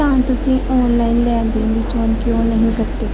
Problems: constant background noise